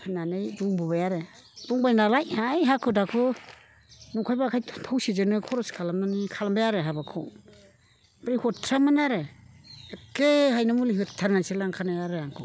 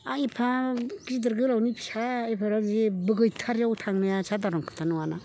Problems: constant background noise